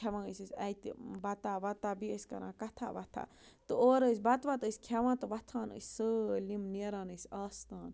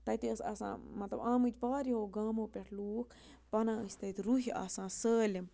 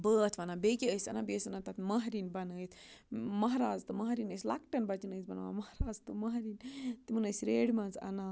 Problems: low volume